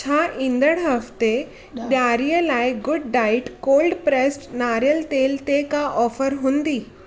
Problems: constant background noise, background conversations at intervals